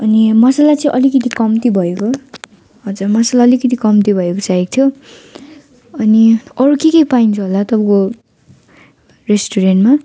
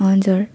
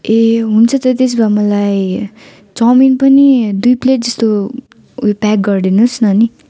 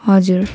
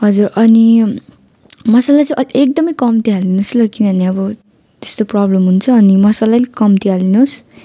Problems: continuous background conversations